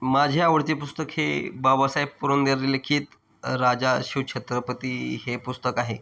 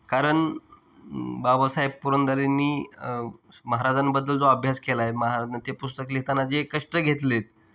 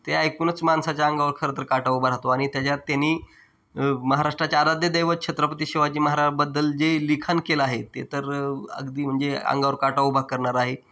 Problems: none marked